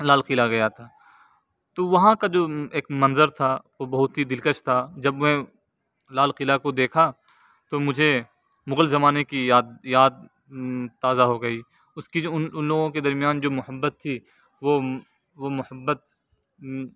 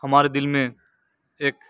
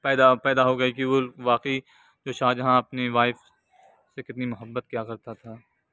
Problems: none marked